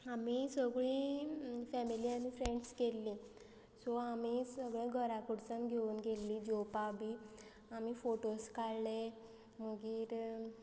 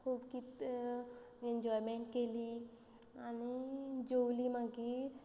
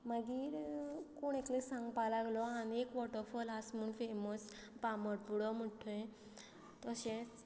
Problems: constant background noise